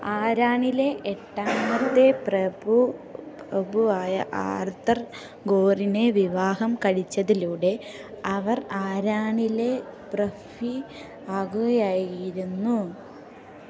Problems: none marked